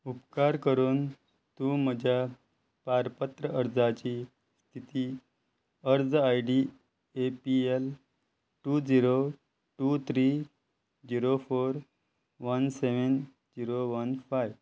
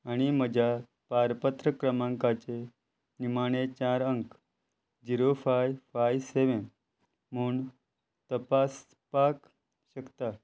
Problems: constant background noise